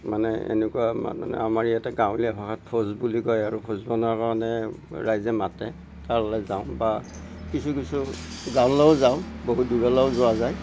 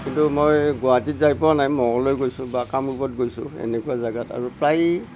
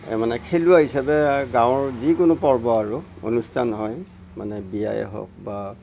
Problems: background sounds at intervals, low volume